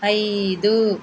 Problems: constant background noise